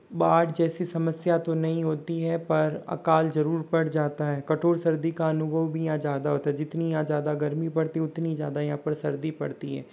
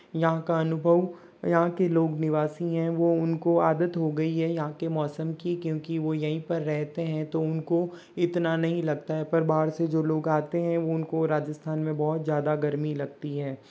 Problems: background sounds at intervals